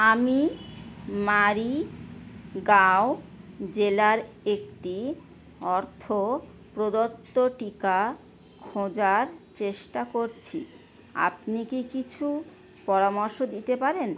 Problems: none marked